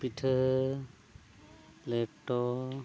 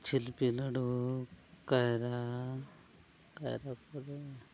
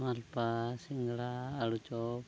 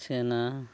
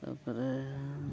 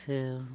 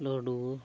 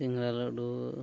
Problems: low volume